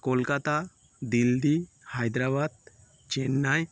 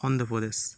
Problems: constant background noise